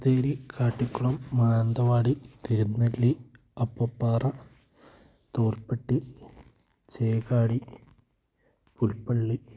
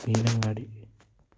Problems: background sounds at intervals, low volume